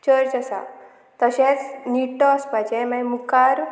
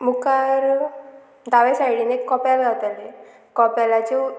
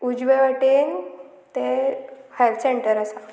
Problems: constant background noise